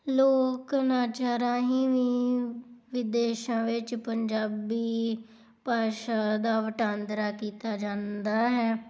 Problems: background sounds at intervals